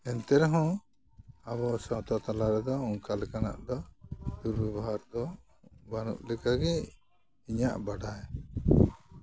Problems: constant background noise